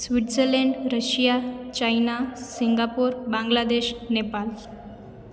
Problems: constant background noise, echo